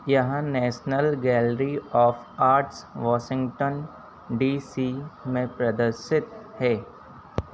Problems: constant background noise